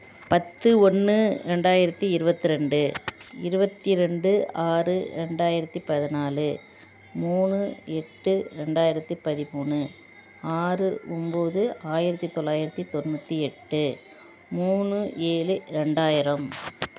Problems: background sounds at intervals